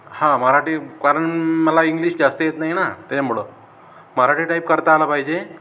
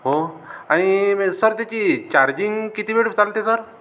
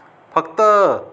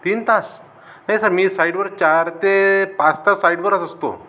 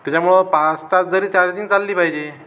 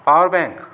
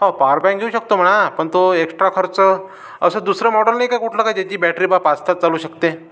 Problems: none marked